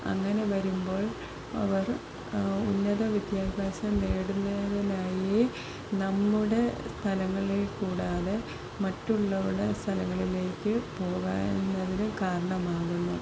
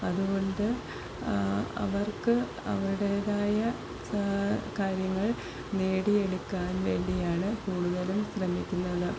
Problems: constant background noise